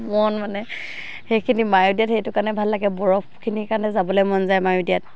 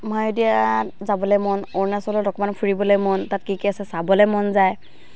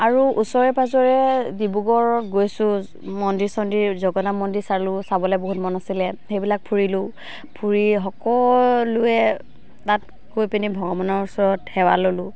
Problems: constant background noise